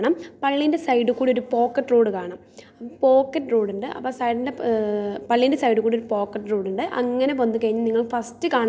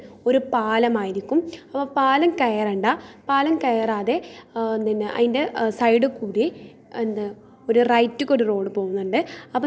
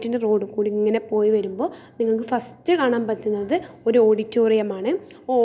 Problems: none marked